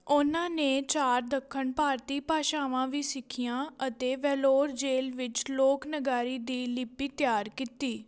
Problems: background conversations at intervals